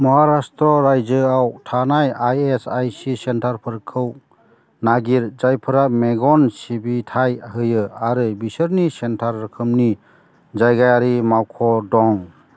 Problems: constant background noise